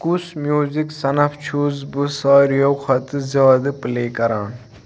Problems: none marked